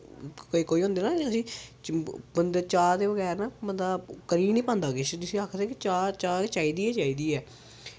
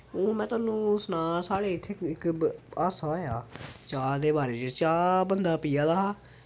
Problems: background sounds at intervals